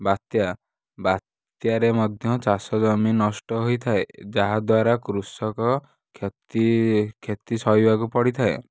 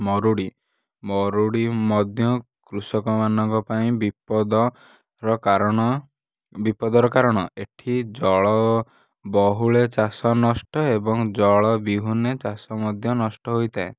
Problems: none marked